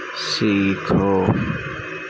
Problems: constant background noise, low volume